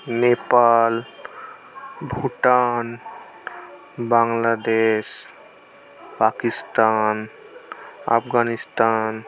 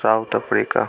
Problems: none marked